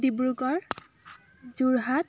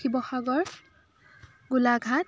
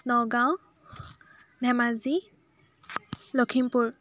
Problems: constant background noise, background conversations at intervals